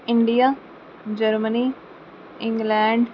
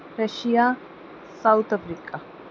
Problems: constant background noise